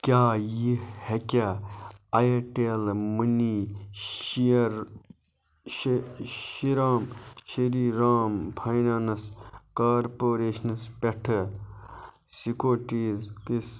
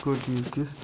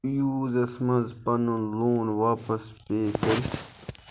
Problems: none marked